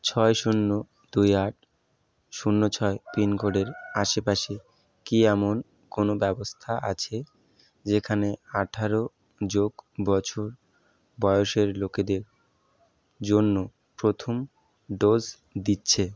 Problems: none marked